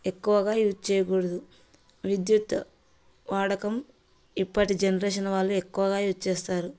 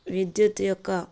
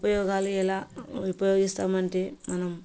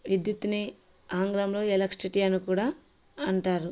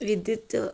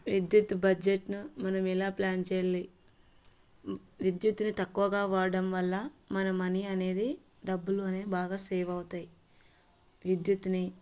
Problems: background sounds at intervals, background conversations at intervals